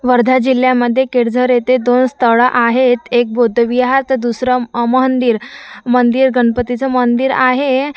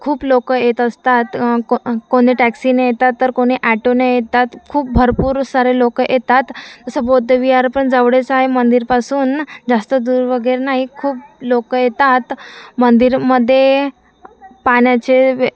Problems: constant background noise, continuous background conversations